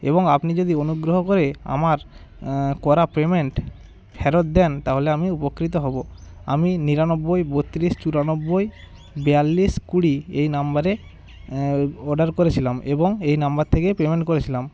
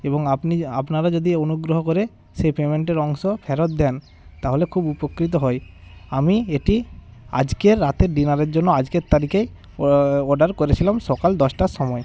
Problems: constant background noise, background conversations at intervals